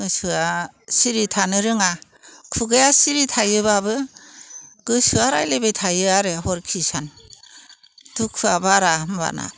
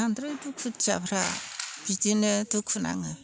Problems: none marked